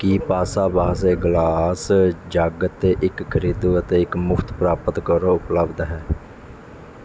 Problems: none marked